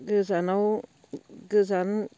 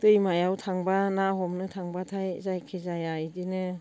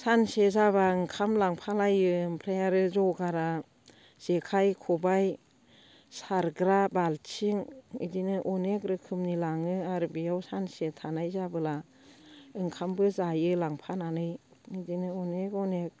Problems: constant background noise